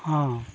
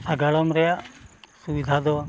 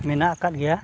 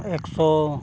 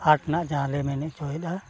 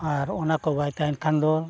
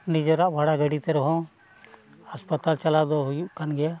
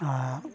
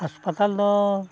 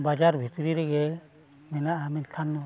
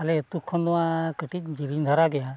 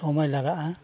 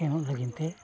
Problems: background sounds at intervals, background conversations at intervals